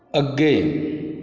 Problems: constant background noise